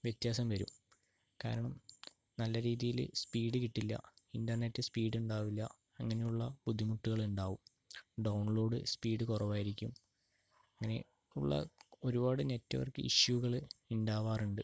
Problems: low volume